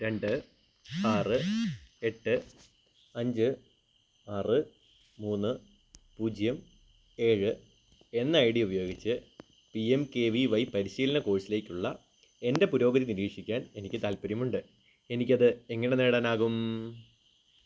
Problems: background sounds at intervals